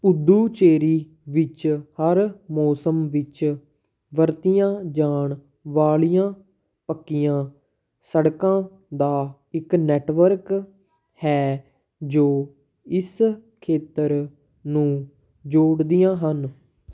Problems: background conversations at intervals